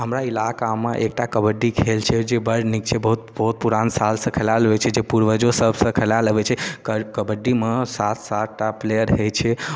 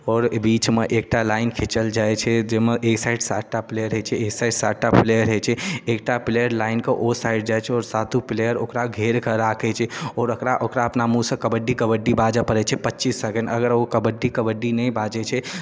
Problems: none marked